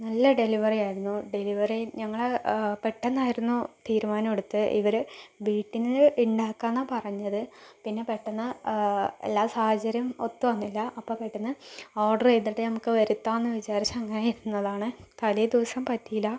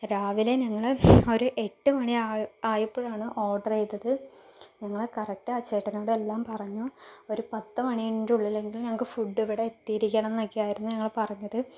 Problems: low volume